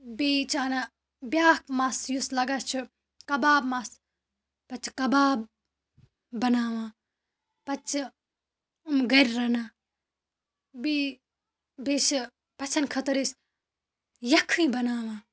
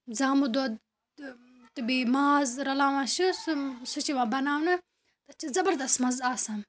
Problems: background sounds at intervals